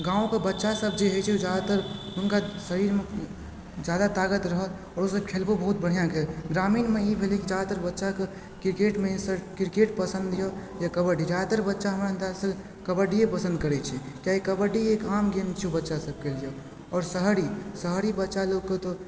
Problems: background sounds at intervals